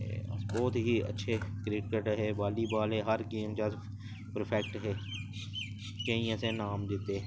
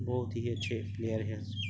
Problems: constant background noise